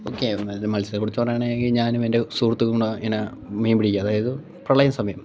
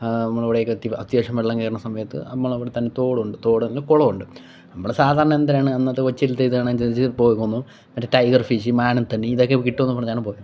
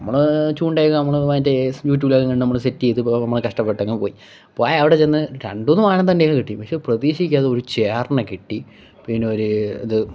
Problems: background sounds at intervals